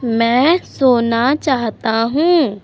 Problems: constant background noise